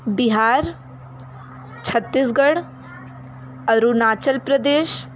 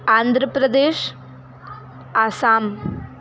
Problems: constant background noise, background conversations at intervals